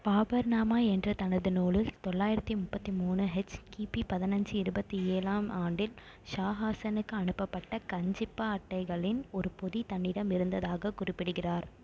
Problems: none marked